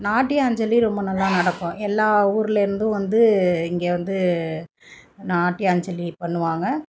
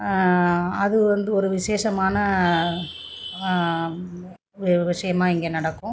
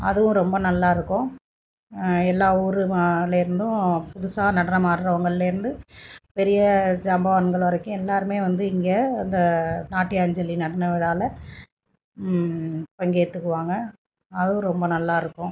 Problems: none marked